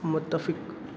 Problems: constant background noise, echo